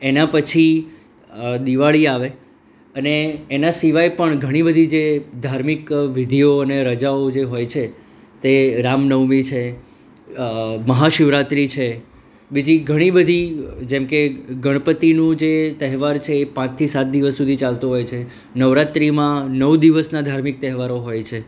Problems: none marked